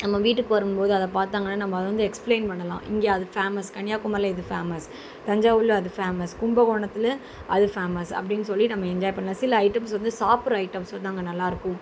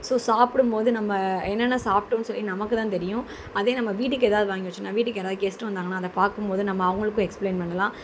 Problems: constant background noise